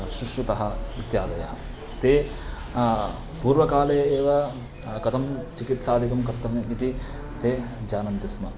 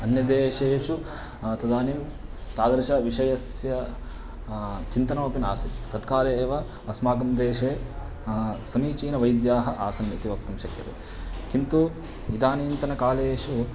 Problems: constant background noise